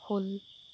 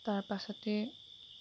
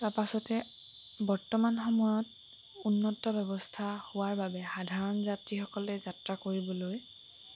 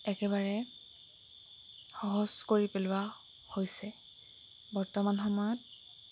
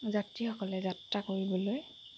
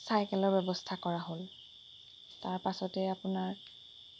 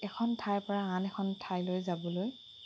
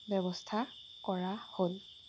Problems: background sounds at intervals